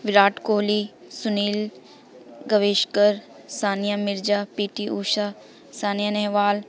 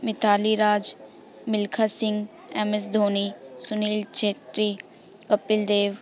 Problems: none marked